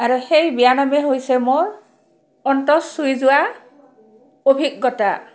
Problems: background sounds at intervals, background conversations at intervals